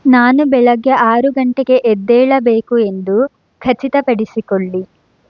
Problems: none marked